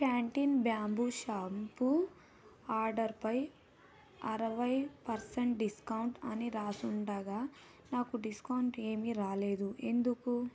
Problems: low volume